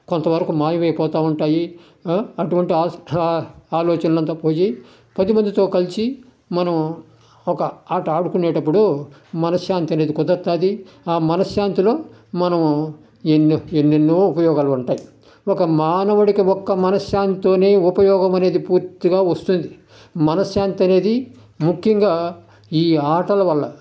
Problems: none marked